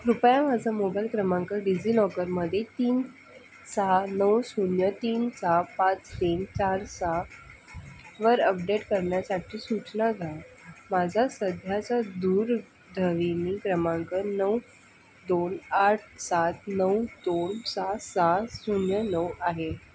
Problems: constant background noise